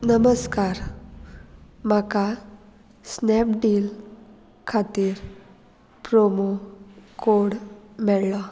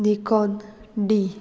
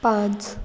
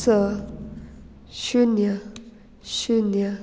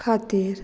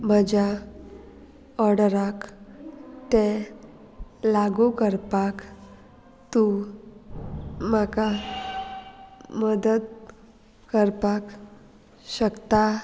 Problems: background sounds at intervals, background conversations at intervals